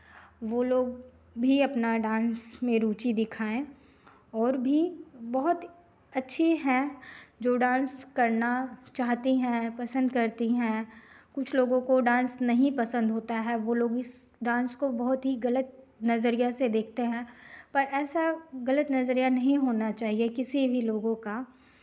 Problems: none marked